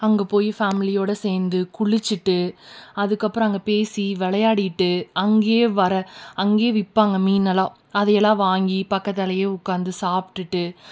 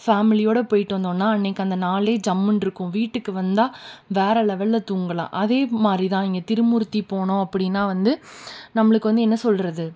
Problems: none marked